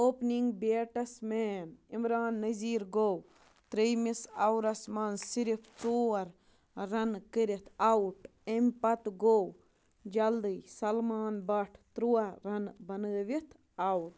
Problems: background sounds at intervals, low volume